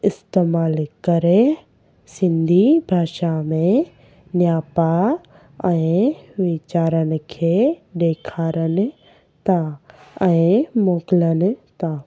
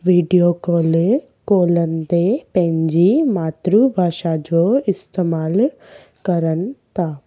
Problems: constant background noise